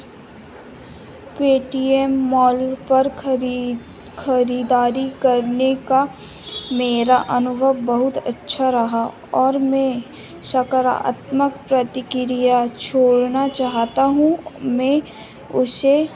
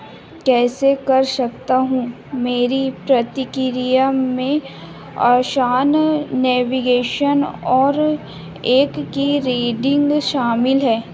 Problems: none marked